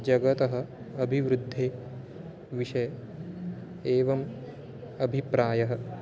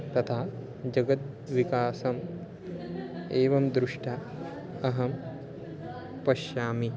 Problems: background sounds at intervals